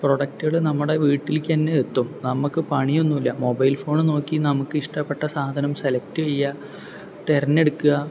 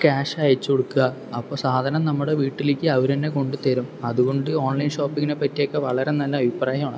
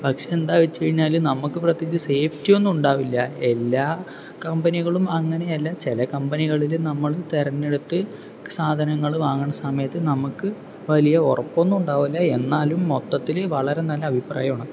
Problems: background sounds at intervals